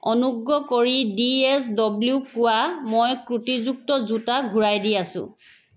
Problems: background sounds at intervals